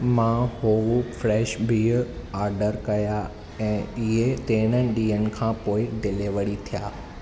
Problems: none marked